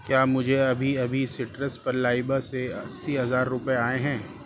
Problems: constant background noise